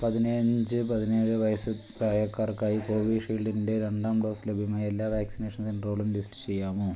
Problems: low volume